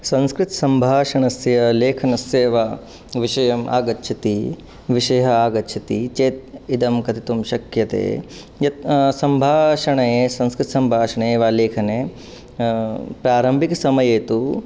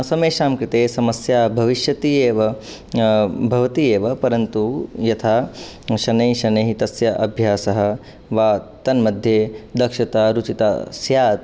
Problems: none marked